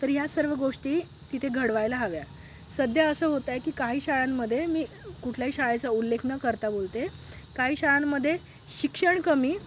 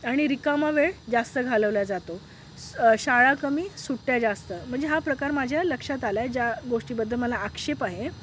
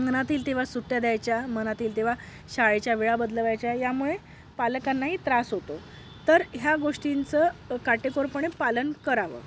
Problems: background sounds at intervals